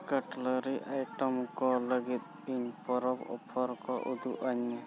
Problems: constant background noise